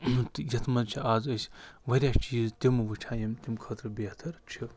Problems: background sounds at intervals